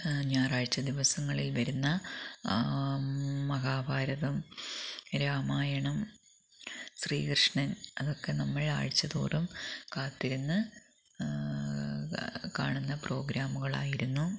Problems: background sounds at intervals, low volume